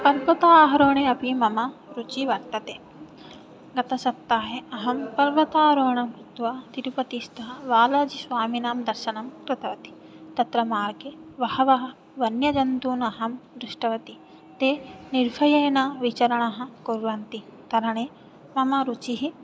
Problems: background sounds at intervals